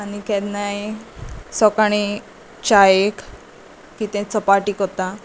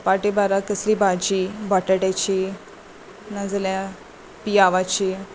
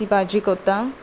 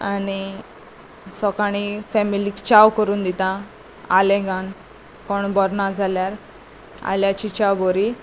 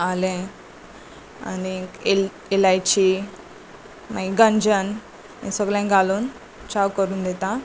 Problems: none marked